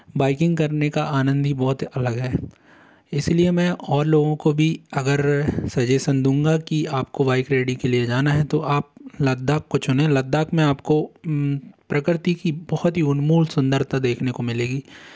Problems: none marked